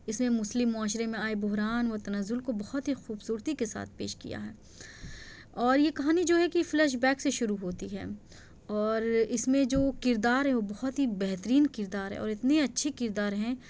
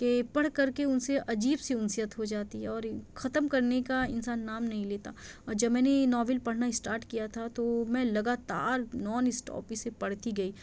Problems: none marked